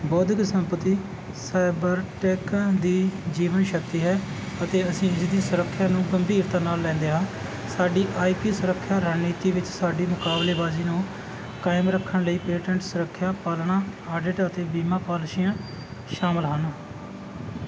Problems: constant background noise